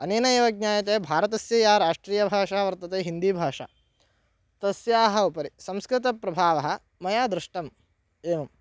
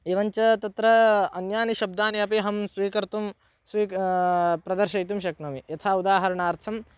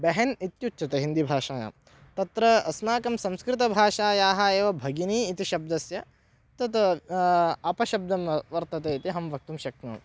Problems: none marked